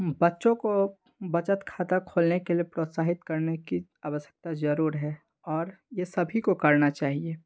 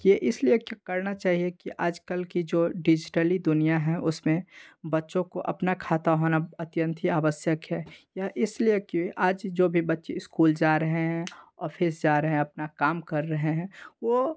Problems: background sounds at intervals